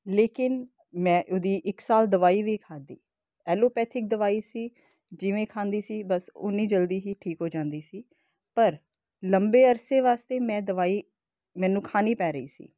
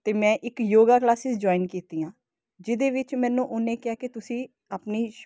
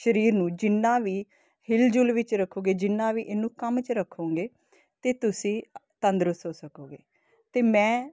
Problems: constant background noise